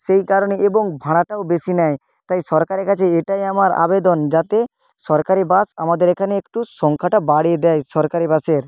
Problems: none marked